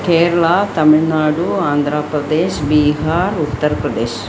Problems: constant background noise